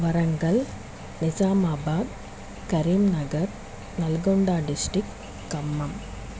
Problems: constant background noise